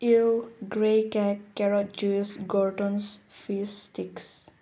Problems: low volume